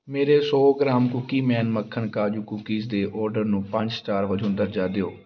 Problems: background conversations at intervals